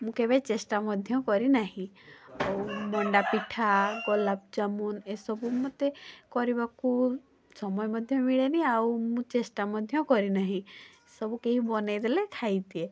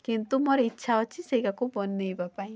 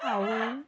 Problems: constant background noise